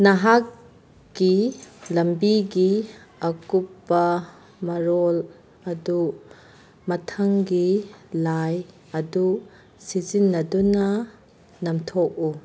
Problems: background sounds at intervals